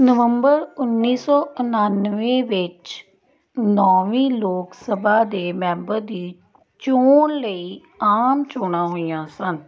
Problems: background sounds at intervals